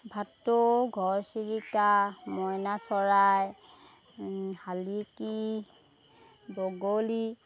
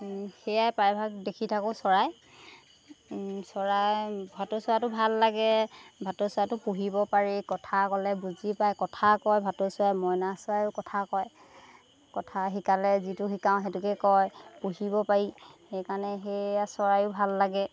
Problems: background sounds at intervals